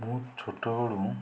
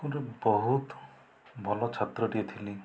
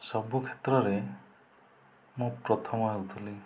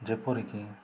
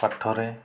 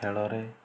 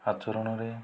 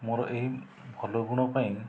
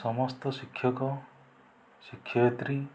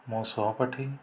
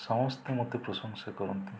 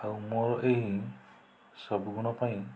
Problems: low volume